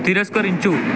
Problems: constant background noise